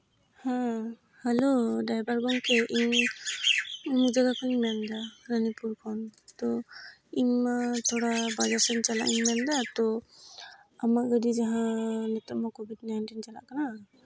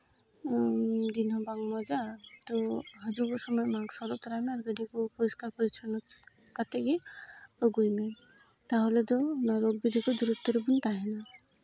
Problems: background sounds at intervals